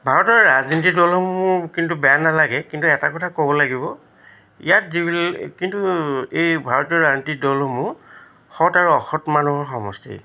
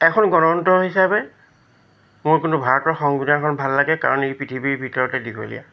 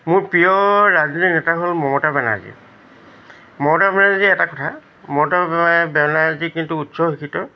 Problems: constant background noise